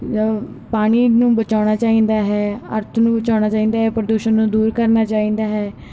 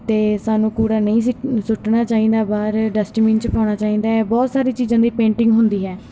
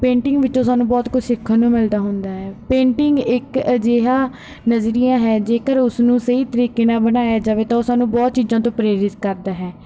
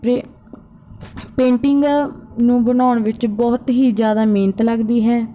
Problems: background sounds at intervals